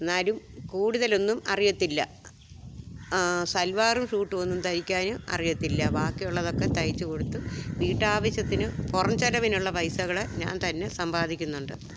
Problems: background sounds at intervals